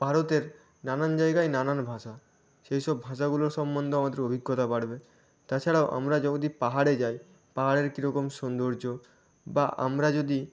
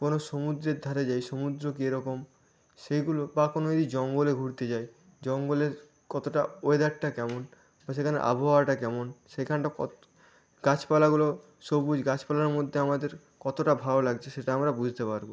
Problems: none marked